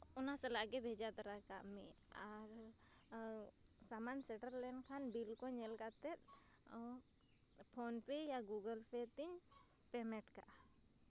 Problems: constant background noise, low volume